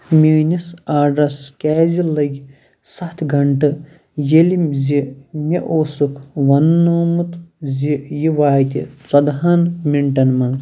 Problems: constant background noise